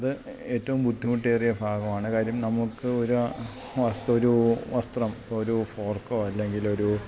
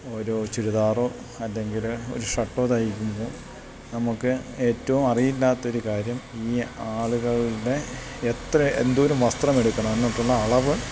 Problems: constant background noise